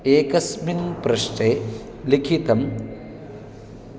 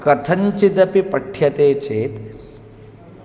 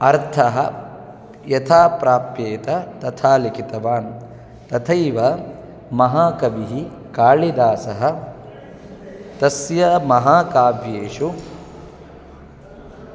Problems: constant background noise